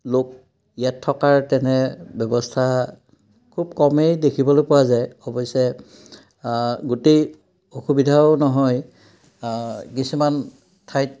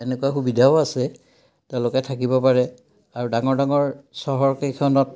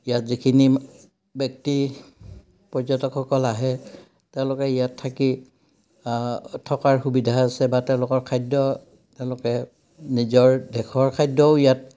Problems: none marked